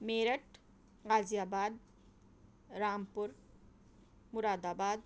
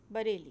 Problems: none marked